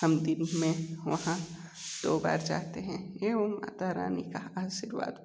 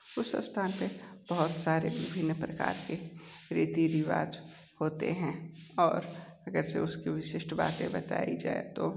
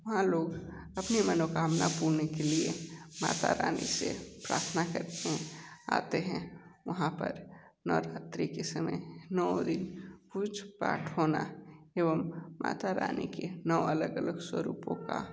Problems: constant background noise, low volume